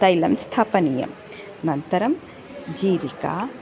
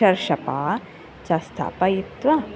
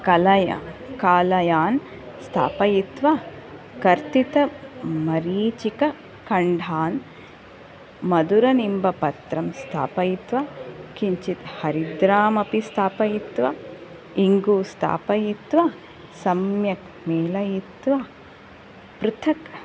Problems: background sounds at intervals